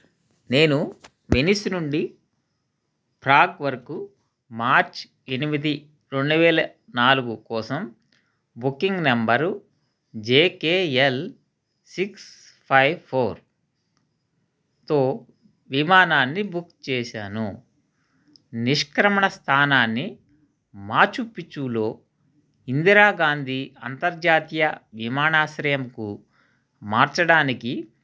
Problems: background sounds at intervals